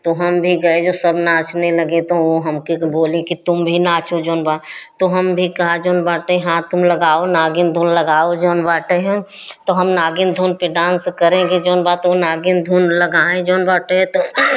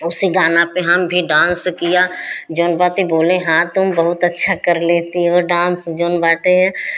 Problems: constant background noise